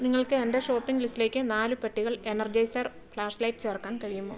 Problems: low volume